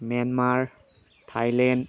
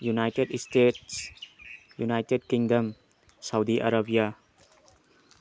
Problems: low volume